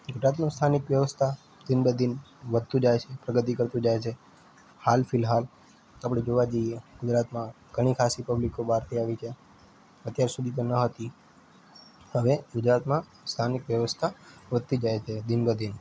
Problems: constant background noise